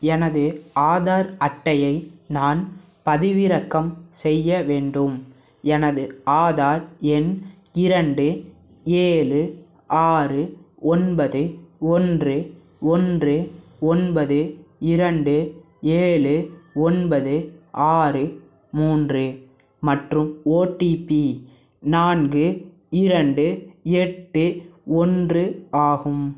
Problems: none marked